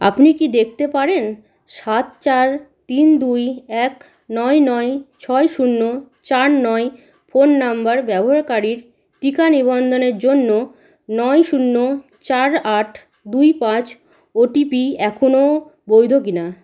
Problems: constant background noise